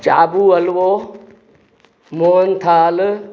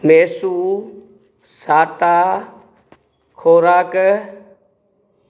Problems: constant background noise, echo